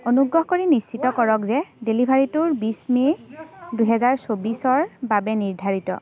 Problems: constant background noise, background conversations at intervals